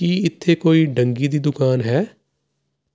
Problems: constant background noise